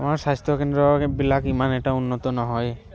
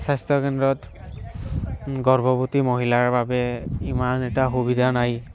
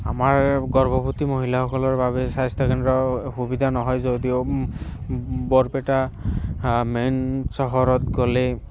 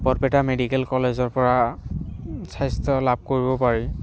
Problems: constant background noise